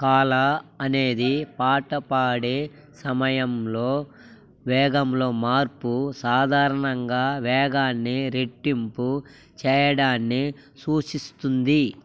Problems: constant background noise